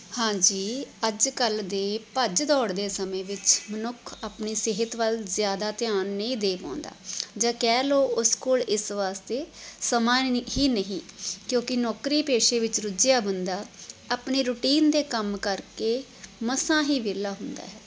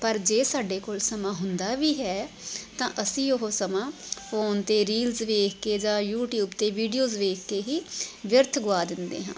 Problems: constant background noise